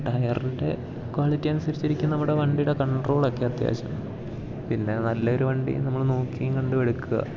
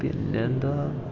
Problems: constant background noise